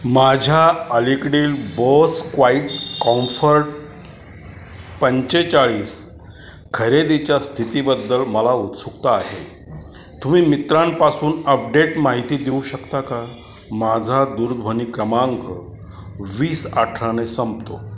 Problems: constant background noise, echo